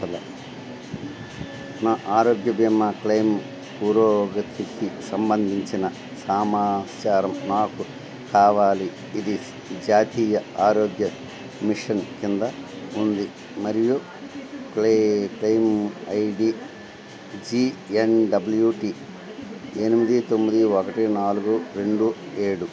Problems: constant background noise